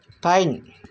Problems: constant background noise